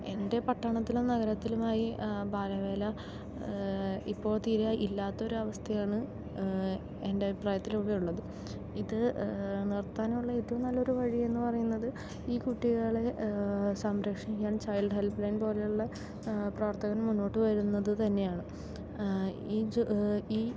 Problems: low volume